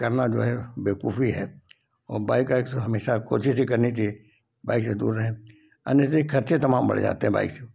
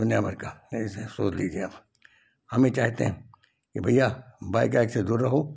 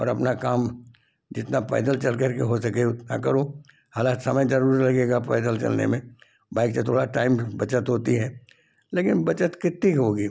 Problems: constant background noise